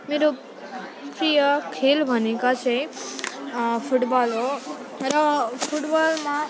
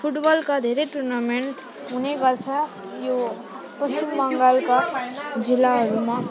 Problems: none marked